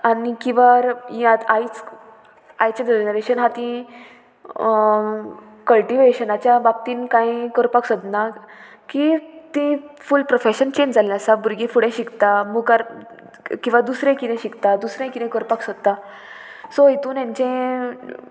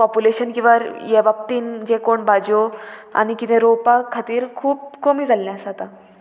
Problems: constant background noise